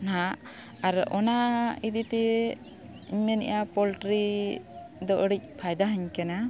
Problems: none marked